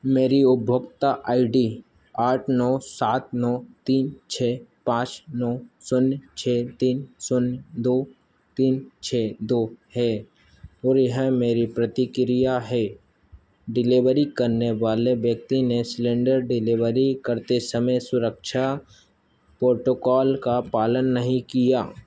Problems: constant background noise